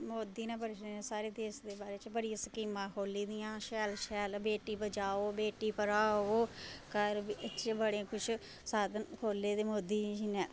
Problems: none marked